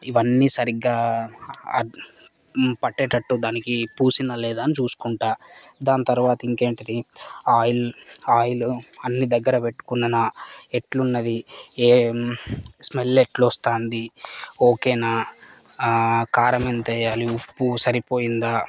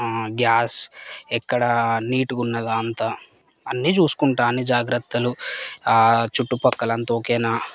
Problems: none marked